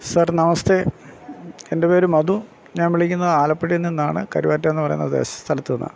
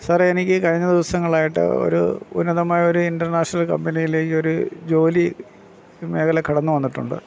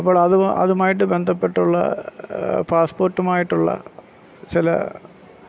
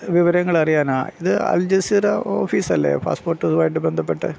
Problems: background sounds at intervals